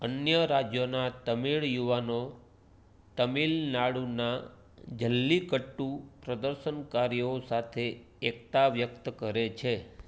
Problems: none marked